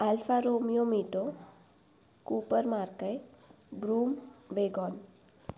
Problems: none marked